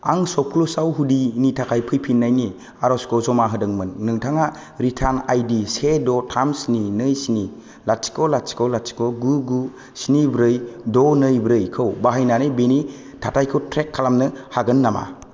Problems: none marked